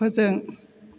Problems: none marked